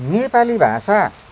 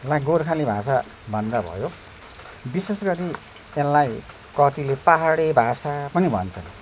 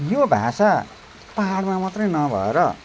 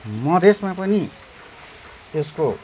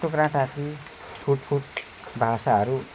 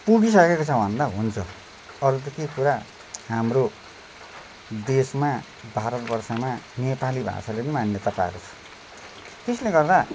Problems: none marked